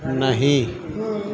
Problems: constant background noise